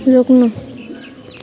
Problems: low volume